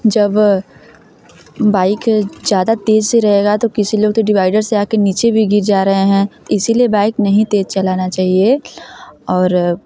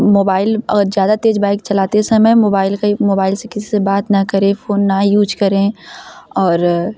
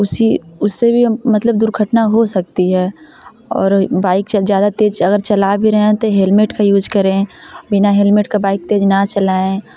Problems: constant background noise, background conversations at intervals